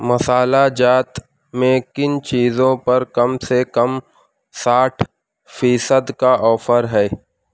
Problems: none marked